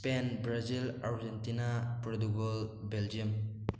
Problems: none marked